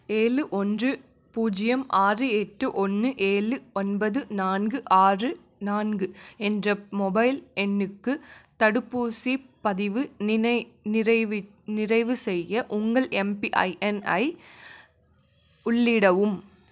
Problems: none marked